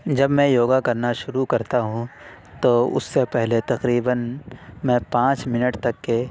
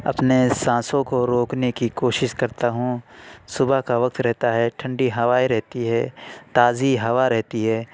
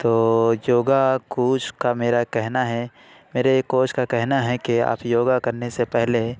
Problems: none marked